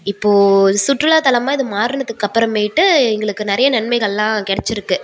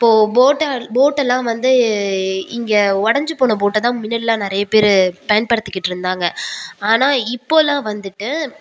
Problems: background sounds at intervals